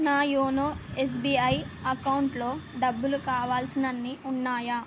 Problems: none marked